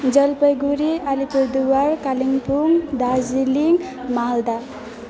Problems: continuous background conversations